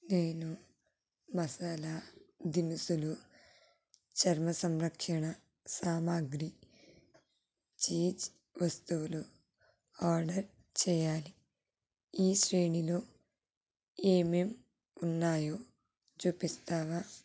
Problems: low volume